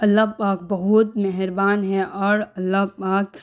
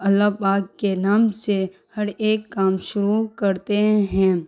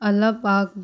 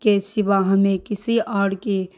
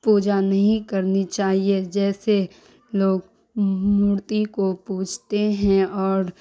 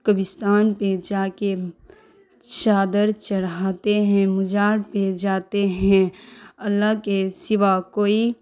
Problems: none marked